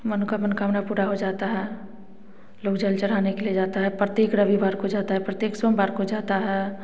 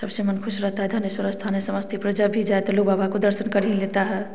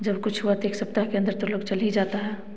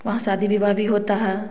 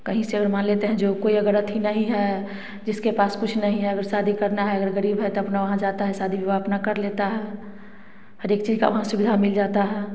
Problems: constant background noise